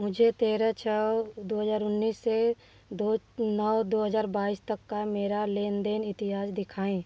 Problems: background sounds at intervals